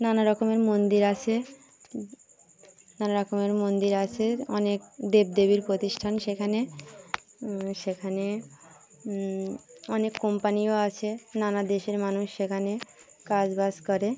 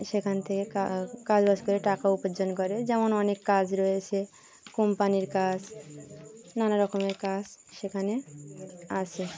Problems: continuous background conversations